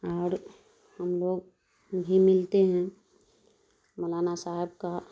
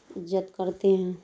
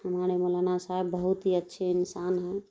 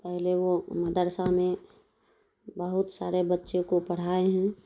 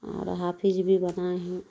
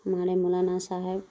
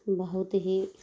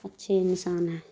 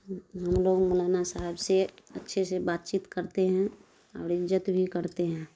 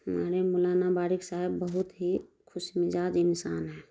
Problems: none marked